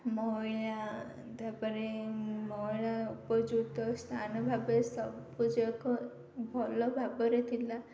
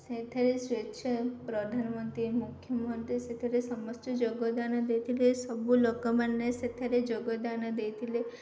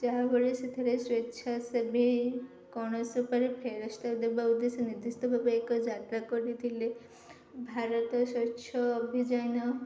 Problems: none marked